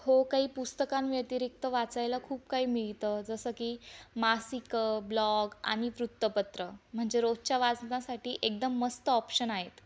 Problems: constant background noise, background conversations at intervals